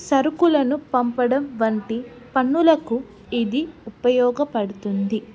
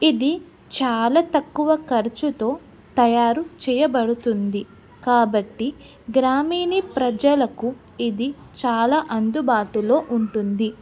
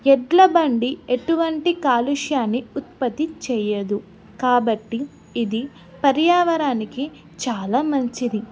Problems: none marked